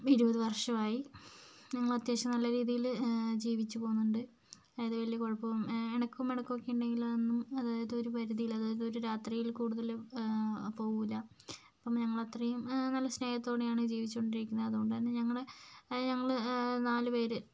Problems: low volume